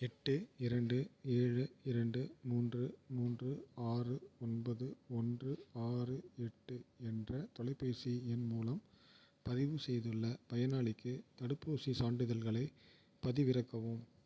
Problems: none marked